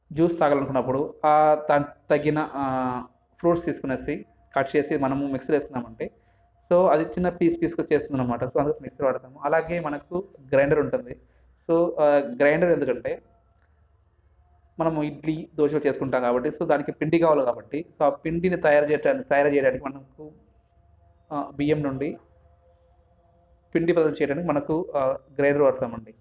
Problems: none marked